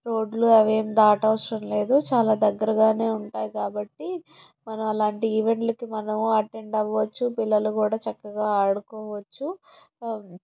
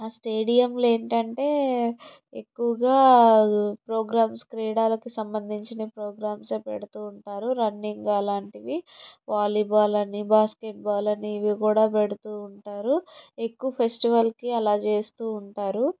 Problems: none marked